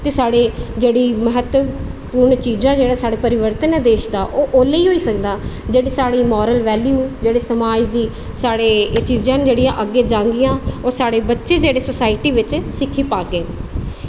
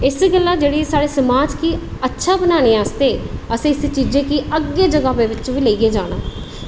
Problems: constant background noise, echo